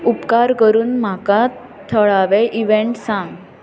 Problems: continuous background conversations